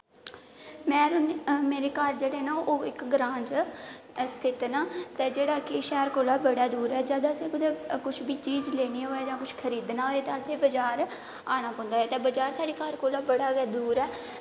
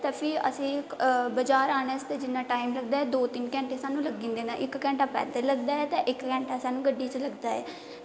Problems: constant background noise, echo